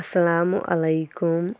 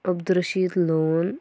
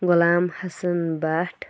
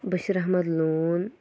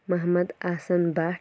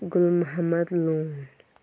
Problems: none marked